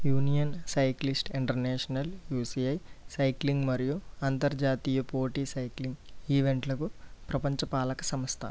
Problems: none marked